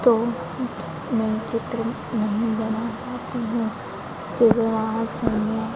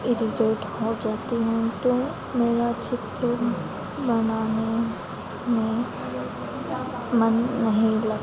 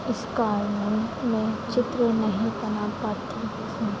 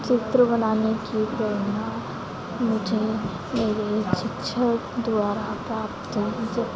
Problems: constant background noise, continuous background conversations